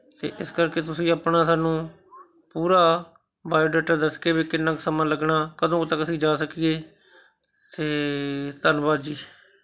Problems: background conversations at intervals